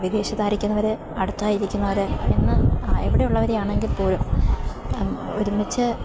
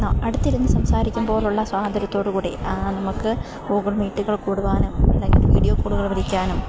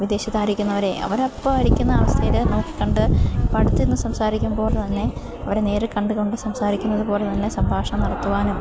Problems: constant background noise